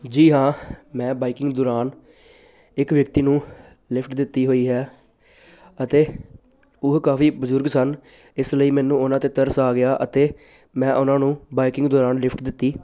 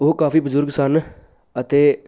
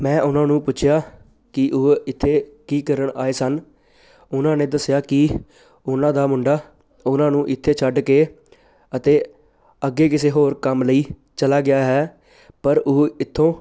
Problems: none marked